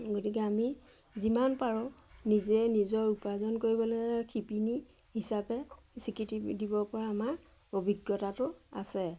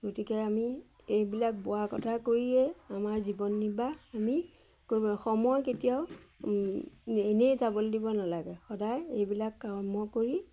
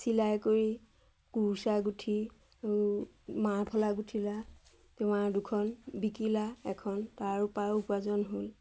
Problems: none marked